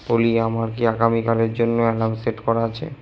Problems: echo